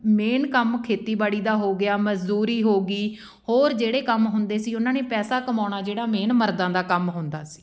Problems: background sounds at intervals